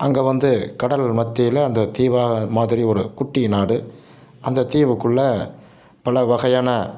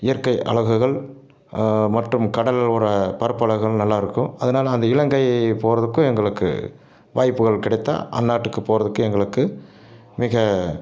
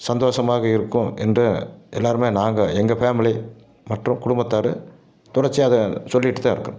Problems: none marked